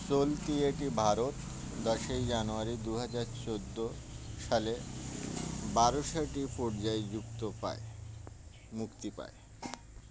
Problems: constant background noise